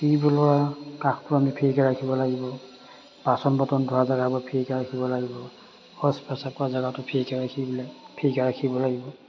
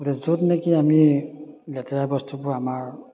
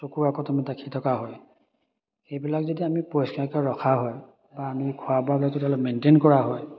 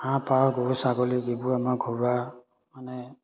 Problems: none marked